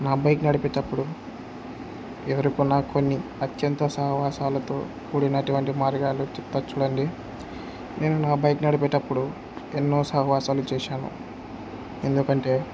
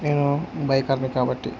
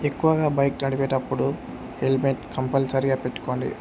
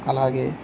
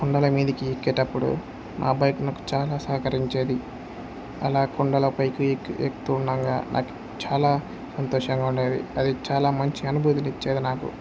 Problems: none marked